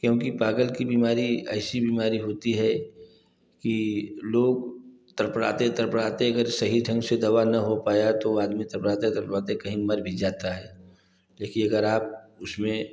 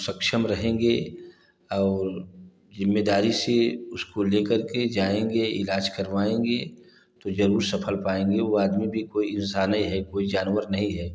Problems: none marked